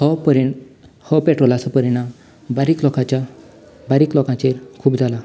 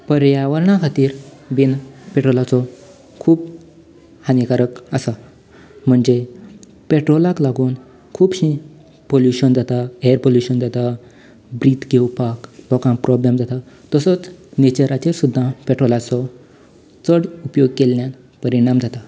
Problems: none marked